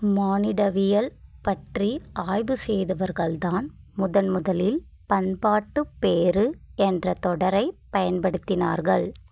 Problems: constant background noise